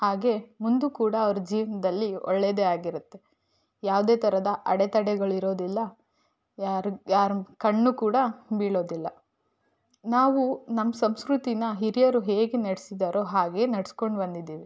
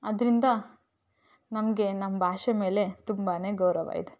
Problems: none marked